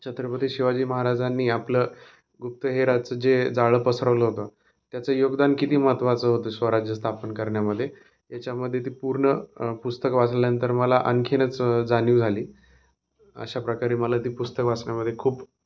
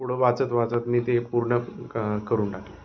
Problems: constant background noise